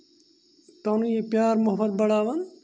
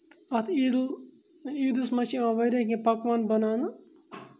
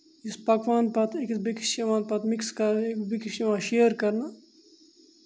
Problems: none marked